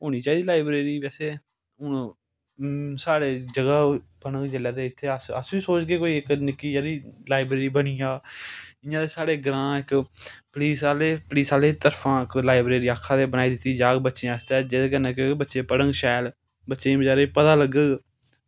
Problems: none marked